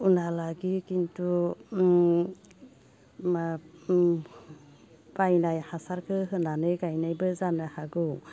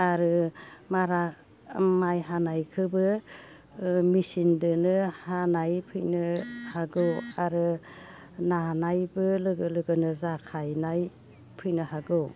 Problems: constant background noise